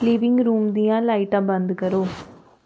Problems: constant background noise